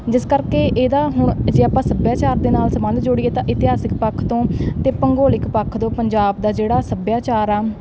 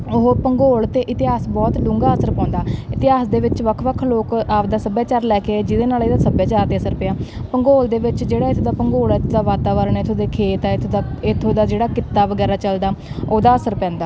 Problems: background sounds at intervals